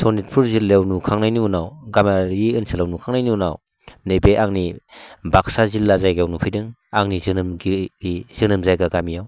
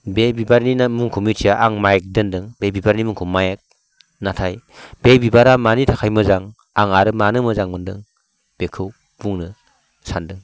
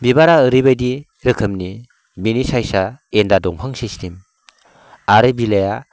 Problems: constant background noise